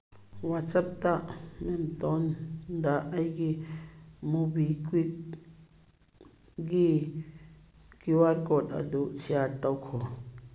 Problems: background sounds at intervals